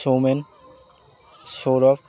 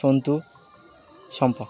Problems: constant background noise